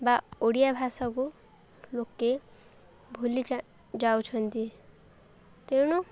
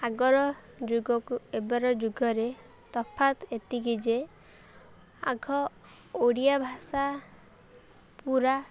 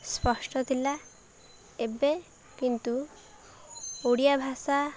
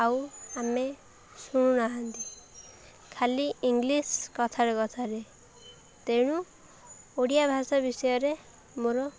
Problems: none marked